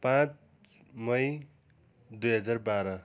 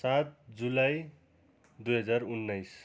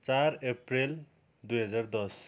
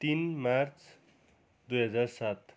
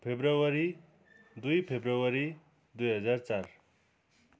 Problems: continuous background conversations